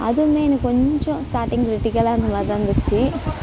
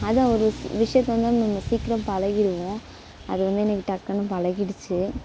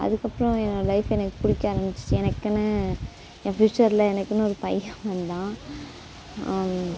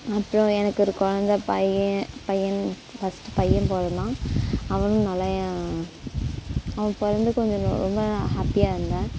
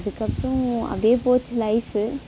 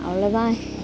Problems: constant background noise